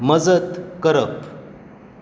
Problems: background sounds at intervals